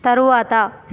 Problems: constant background noise